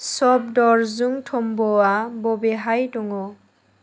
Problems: none marked